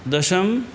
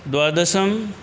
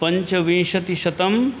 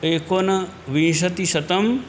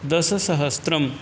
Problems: none marked